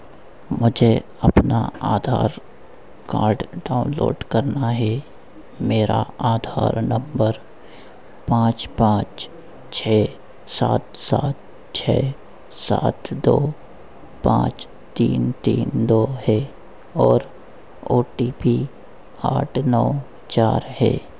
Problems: constant background noise